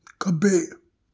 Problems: background sounds at intervals